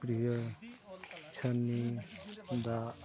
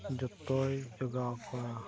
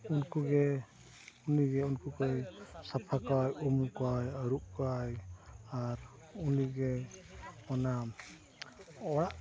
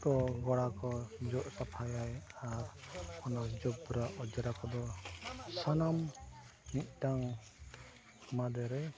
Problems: background sounds at intervals, continuous background conversations, low volume